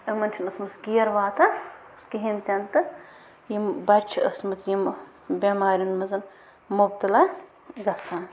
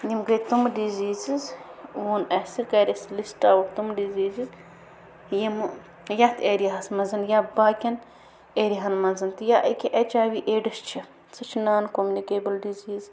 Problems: constant background noise